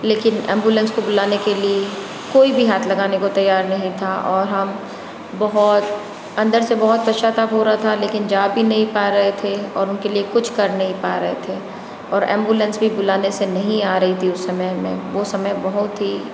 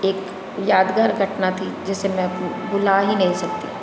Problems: constant background noise, background conversations at intervals